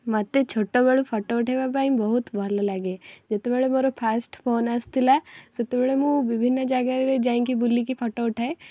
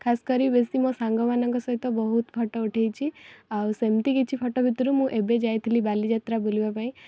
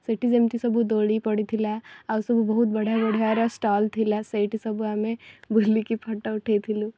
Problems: background sounds at intervals